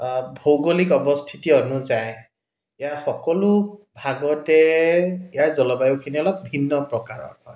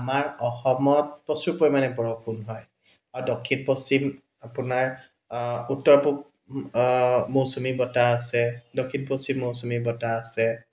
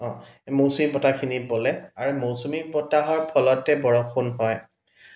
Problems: background sounds at intervals